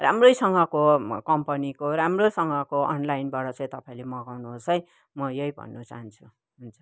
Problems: none marked